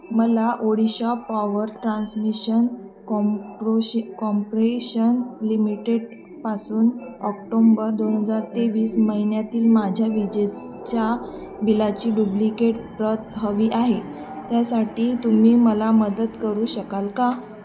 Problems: constant background noise, continuous background conversations